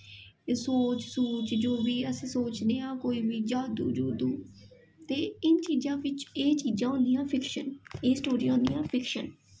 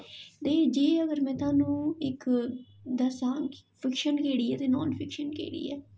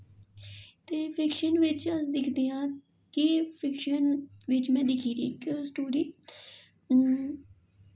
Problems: echo